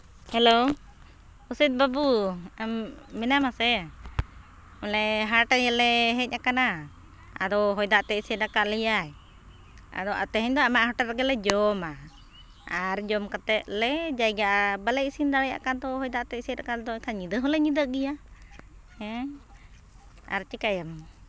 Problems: constant background noise